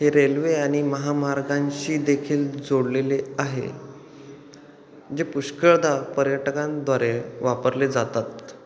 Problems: none marked